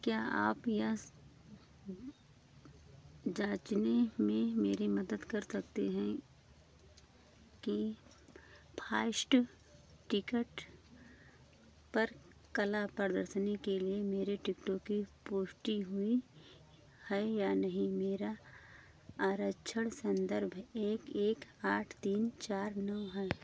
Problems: low volume